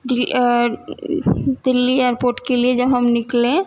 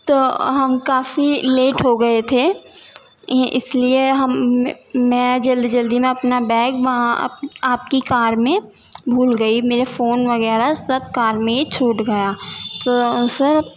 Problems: constant background noise, background conversations at intervals